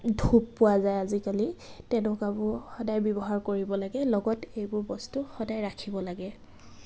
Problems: constant background noise, background conversations at intervals